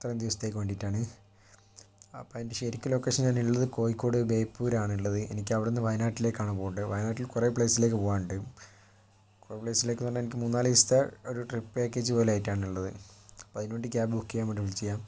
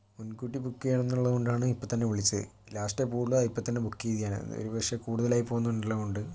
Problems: low volume